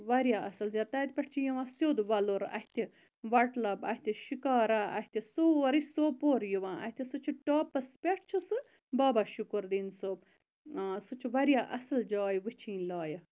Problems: constant background noise